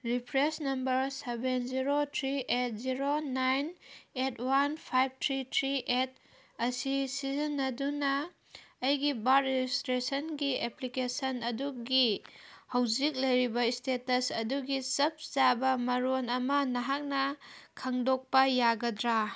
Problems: background sounds at intervals